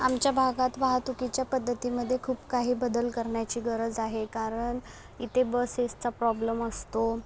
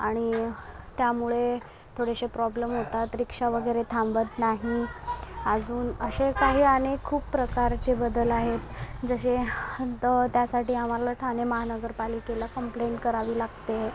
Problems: background sounds at intervals